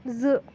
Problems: constant background noise